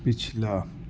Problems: constant background noise, low volume